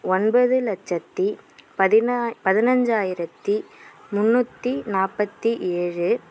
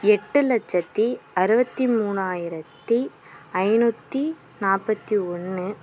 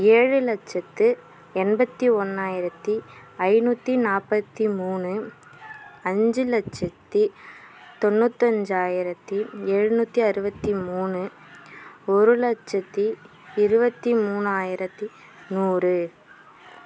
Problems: constant background noise